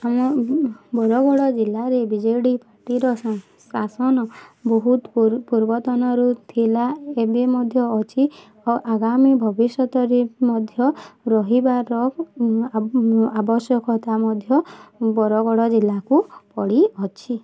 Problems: constant background noise